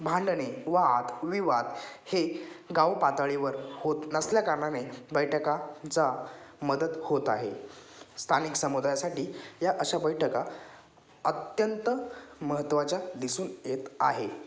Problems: background sounds at intervals, background conversations at intervals